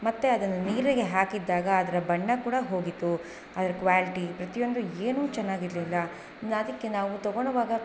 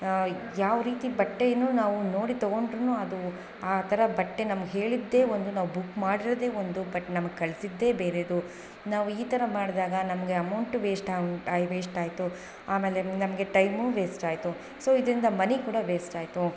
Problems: background sounds at intervals